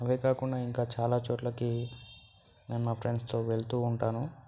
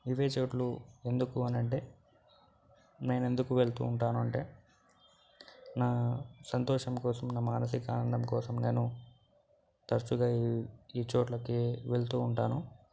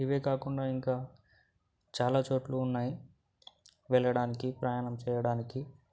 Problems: background sounds at intervals